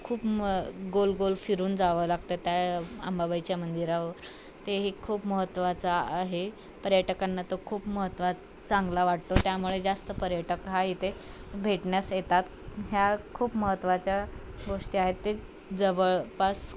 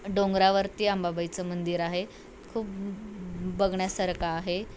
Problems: none marked